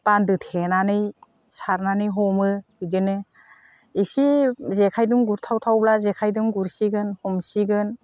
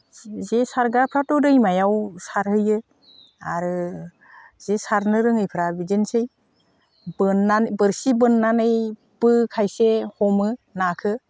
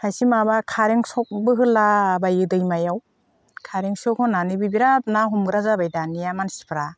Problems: constant background noise